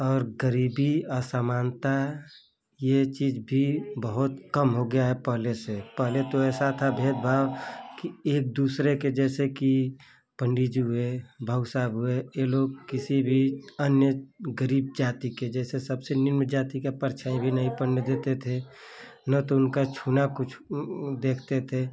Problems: none marked